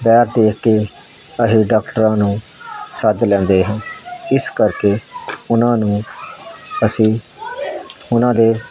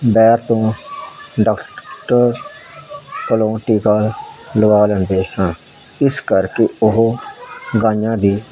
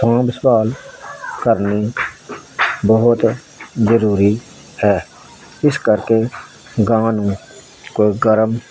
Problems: constant background noise